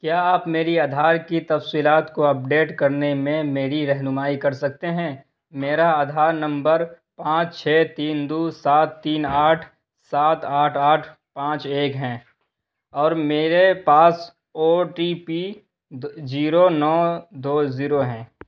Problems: none marked